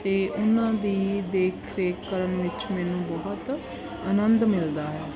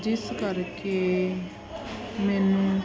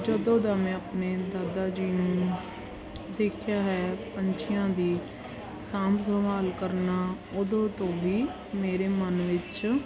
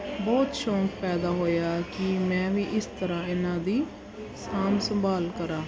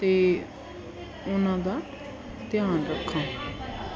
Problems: background sounds at intervals